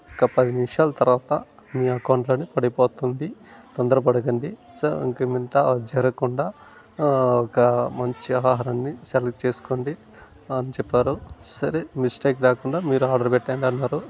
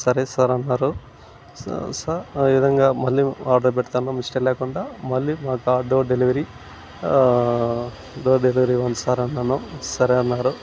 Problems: none marked